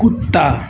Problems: constant background noise